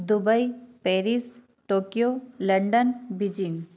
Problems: constant background noise